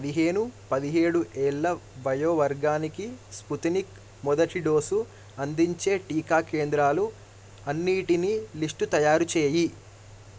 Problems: none marked